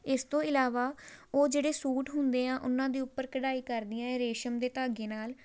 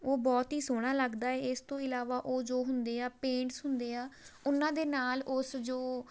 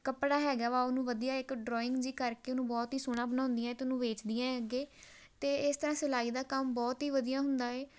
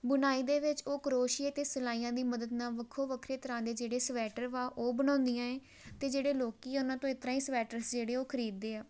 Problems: none marked